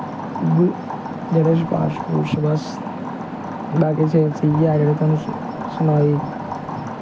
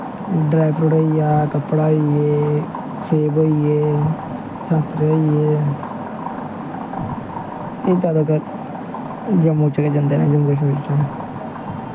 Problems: constant background noise